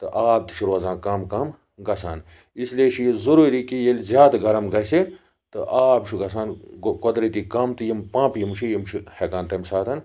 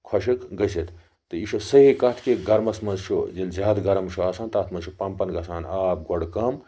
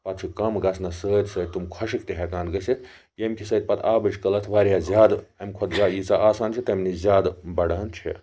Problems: background sounds at intervals, background conversations at intervals